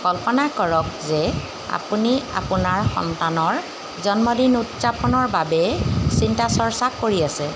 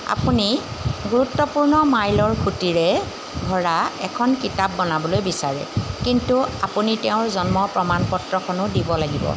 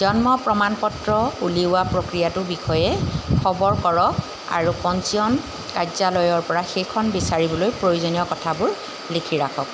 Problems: background sounds at intervals